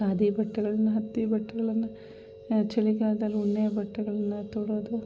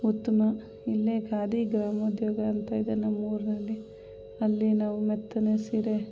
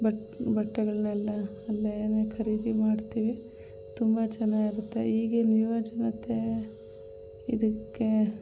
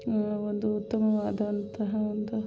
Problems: background sounds at intervals